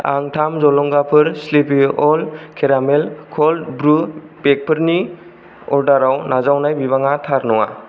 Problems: none marked